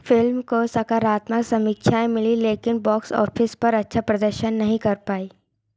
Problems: none marked